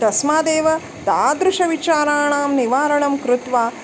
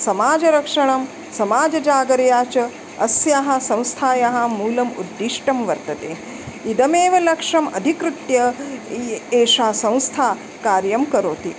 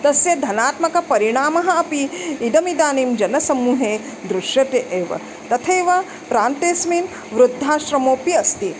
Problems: constant background noise